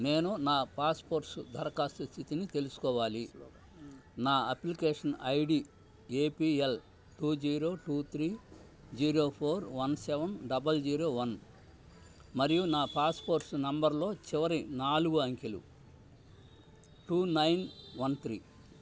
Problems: constant background noise, low volume